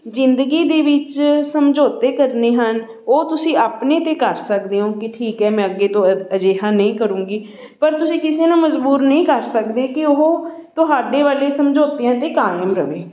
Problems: background sounds at intervals, continuous background conversations